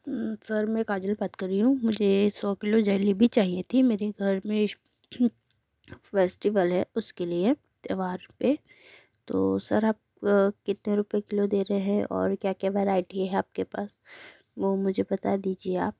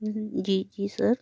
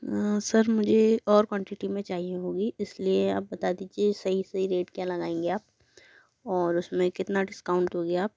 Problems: background sounds at intervals